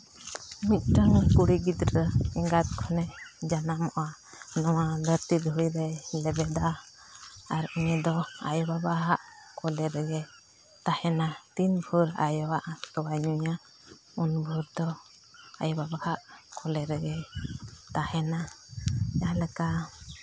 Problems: constant background noise, low volume